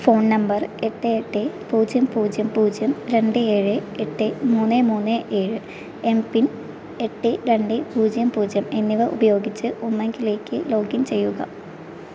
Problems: constant background noise, low volume